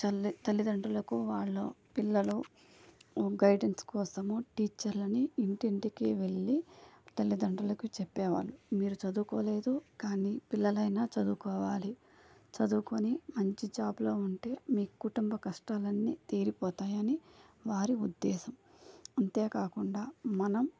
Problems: low volume